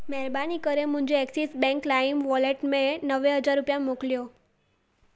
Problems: none marked